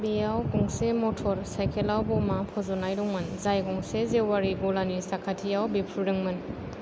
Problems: low volume